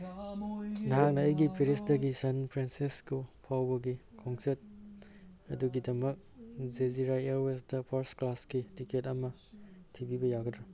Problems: background sounds at intervals, background conversations at intervals